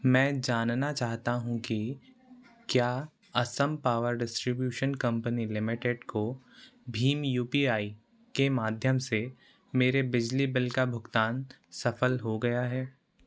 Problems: constant background noise